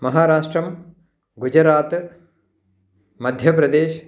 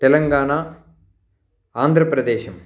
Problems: none marked